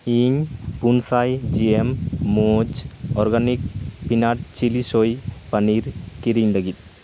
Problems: none marked